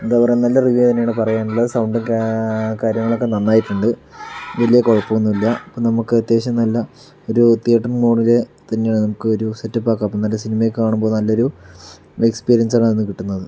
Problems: background sounds at intervals